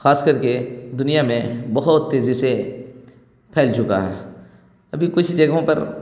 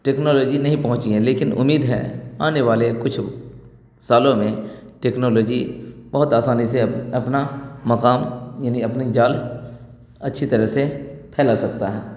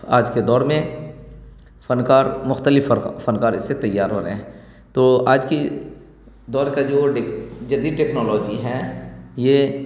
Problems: none marked